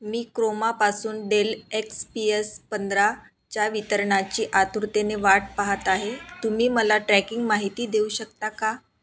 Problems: constant background noise, background conversations at intervals